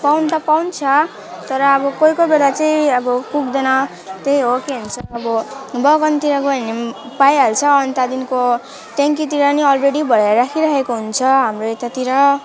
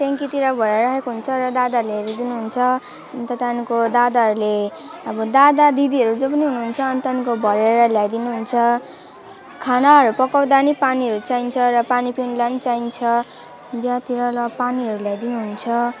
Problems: constant background noise, continuous background conversations